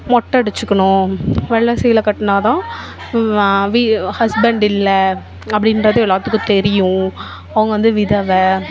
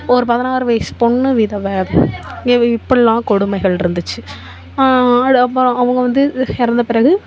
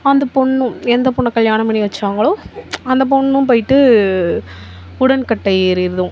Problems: background conversations at intervals